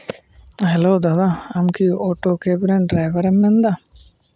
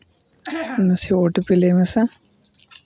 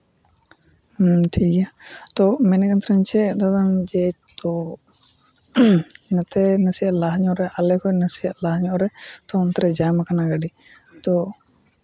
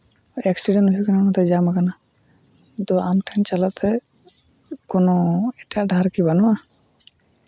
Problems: constant background noise